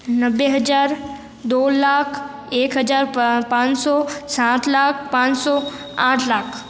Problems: none marked